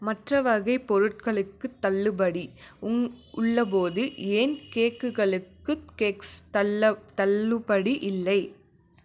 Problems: none marked